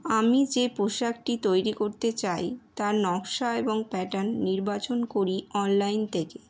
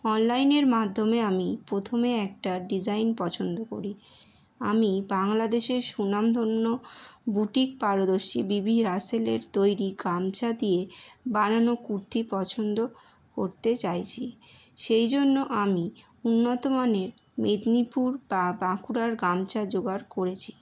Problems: none marked